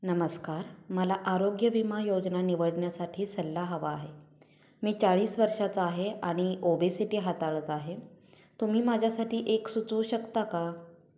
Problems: none marked